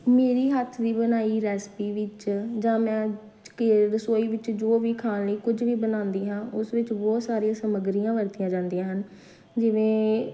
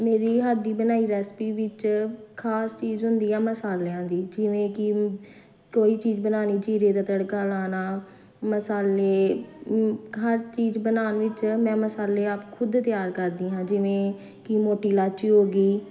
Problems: constant background noise